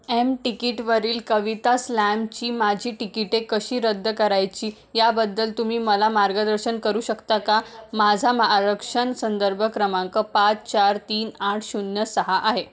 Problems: background sounds at intervals, background conversations at intervals